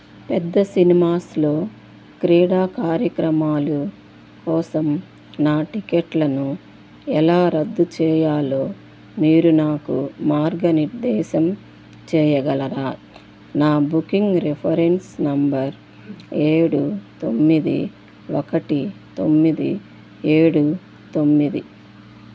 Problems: constant background noise